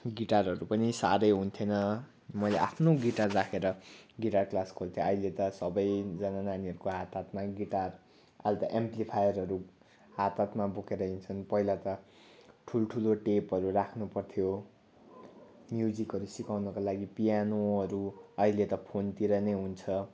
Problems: constant background noise